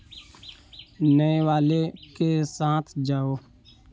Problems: constant background noise